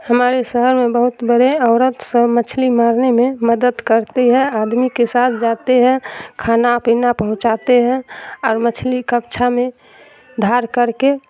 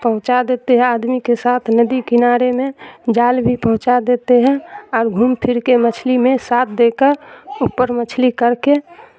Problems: constant background noise